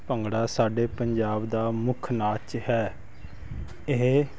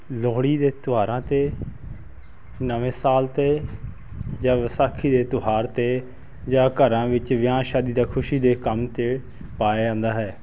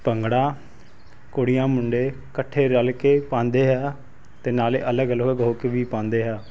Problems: constant background noise